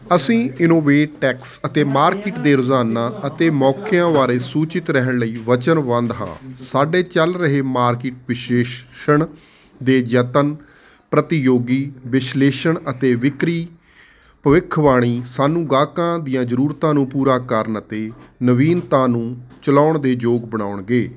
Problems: constant background noise